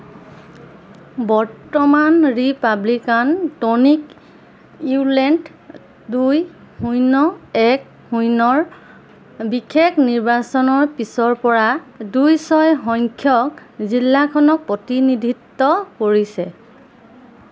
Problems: none marked